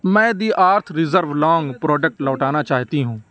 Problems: none marked